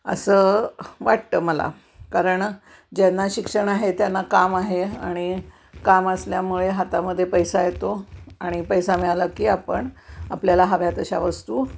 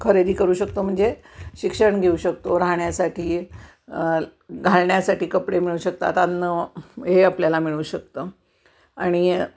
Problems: none marked